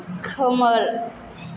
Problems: constant background noise